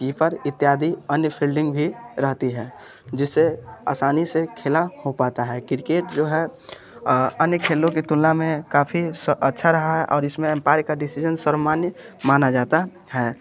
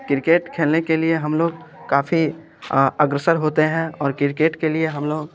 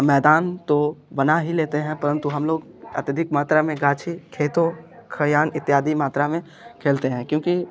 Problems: none marked